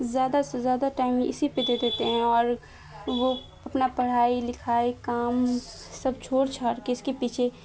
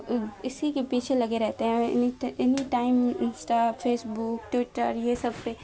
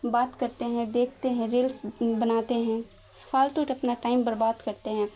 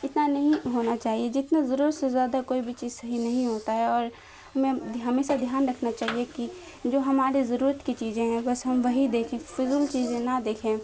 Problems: constant background noise